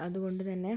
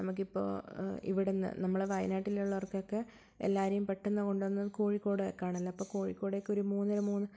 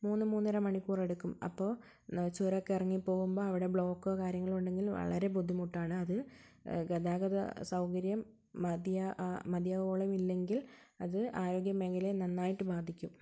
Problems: low volume